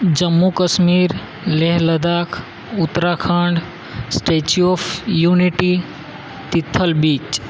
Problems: constant background noise